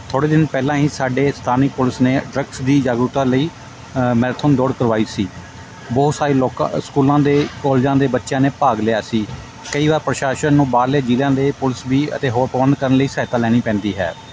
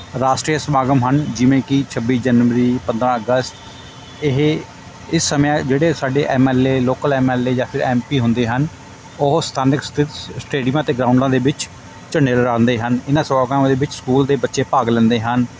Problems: constant background noise